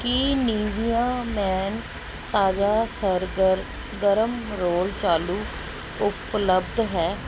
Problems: none marked